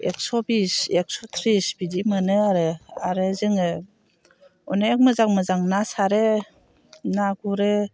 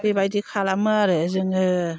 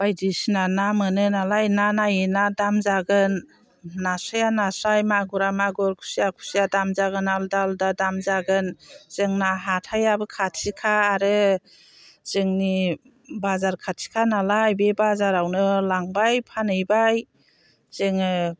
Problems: constant background noise